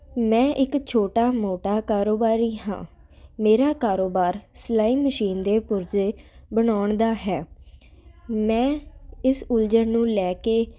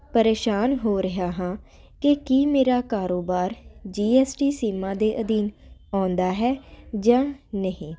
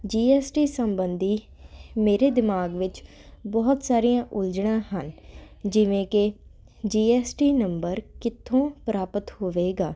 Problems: none marked